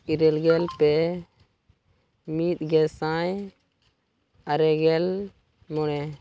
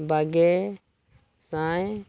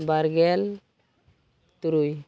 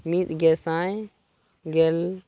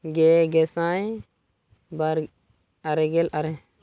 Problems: none marked